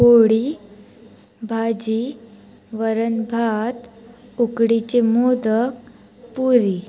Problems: none marked